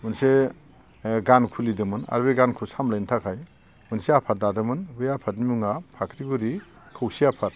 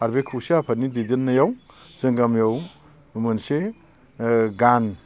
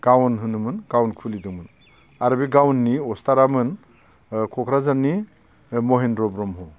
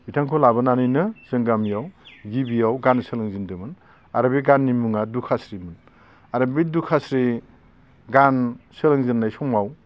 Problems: none marked